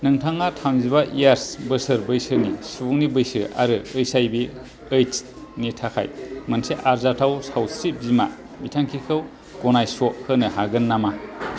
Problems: none marked